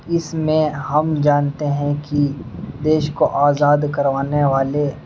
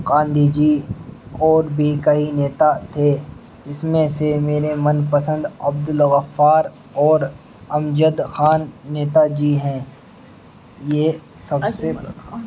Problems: constant background noise, background conversations at intervals